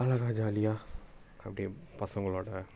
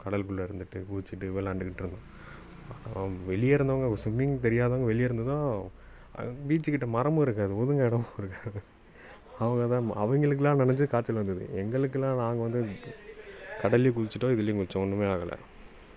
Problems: background conversations at intervals